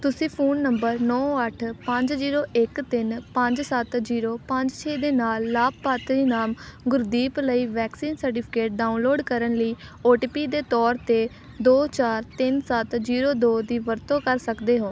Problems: constant background noise